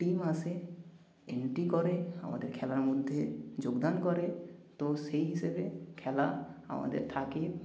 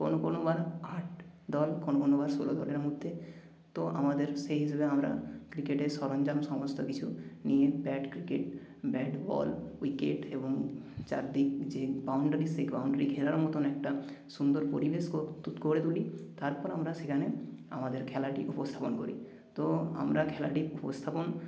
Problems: background sounds at intervals